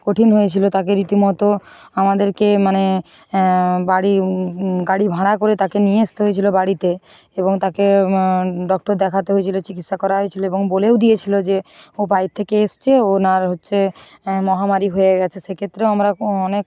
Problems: none marked